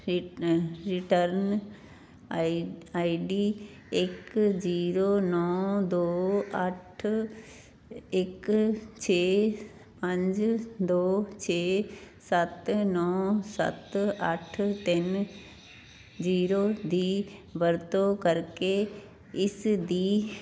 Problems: background sounds at intervals